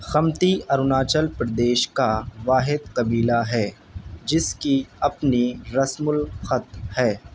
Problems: constant background noise